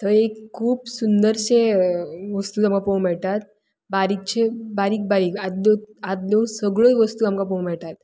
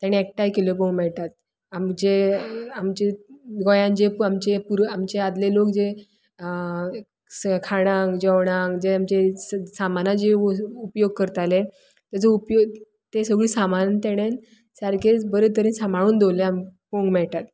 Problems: background sounds at intervals